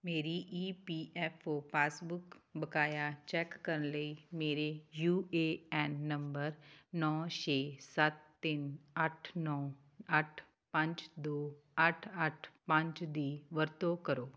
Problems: none marked